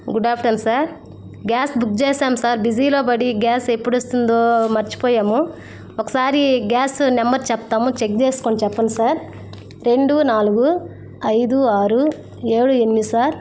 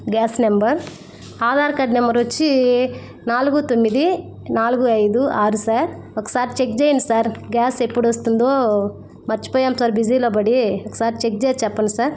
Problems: constant background noise